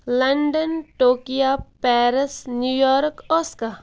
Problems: none marked